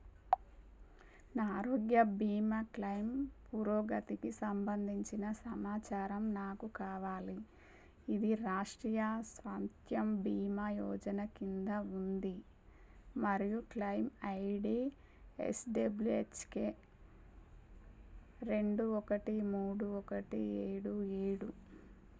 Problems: low volume